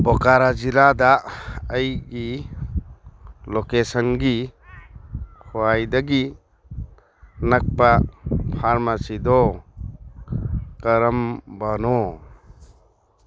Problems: none marked